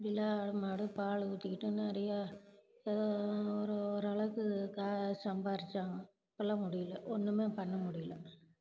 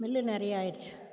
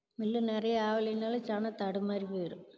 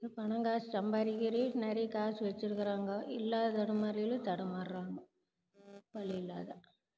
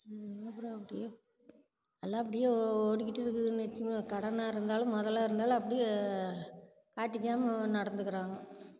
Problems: background sounds at intervals